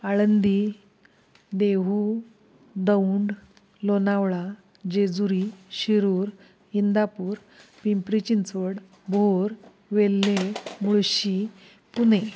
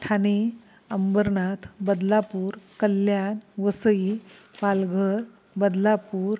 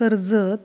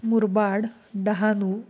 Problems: constant background noise, background conversations at intervals